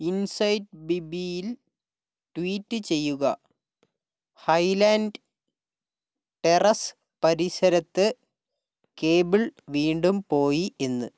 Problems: none marked